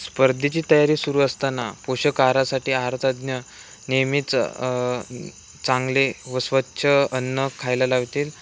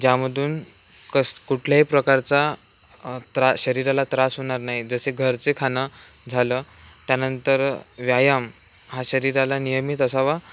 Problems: none marked